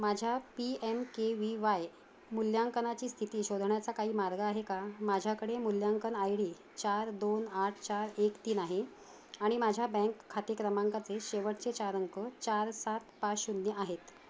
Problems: none marked